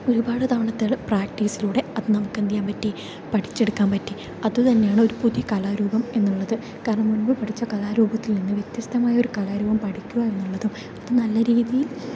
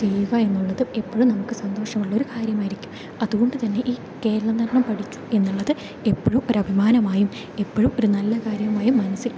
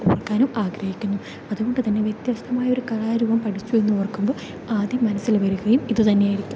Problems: constant background noise